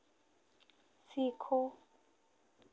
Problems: constant background noise